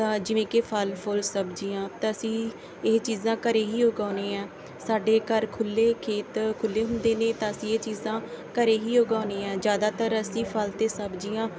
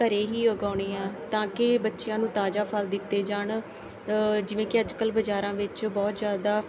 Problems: background sounds at intervals, background conversations at intervals